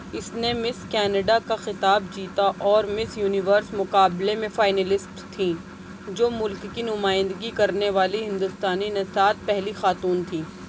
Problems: none marked